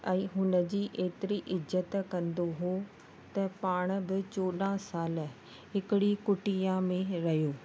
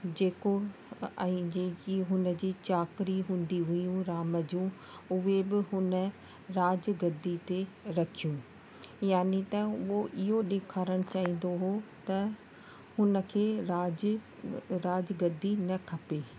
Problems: constant background noise